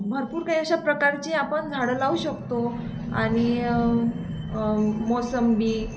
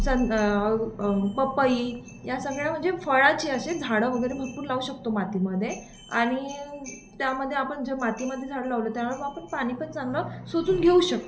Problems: constant background noise